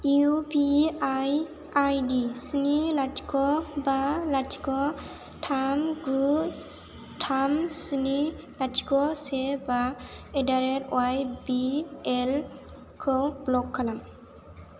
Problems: none marked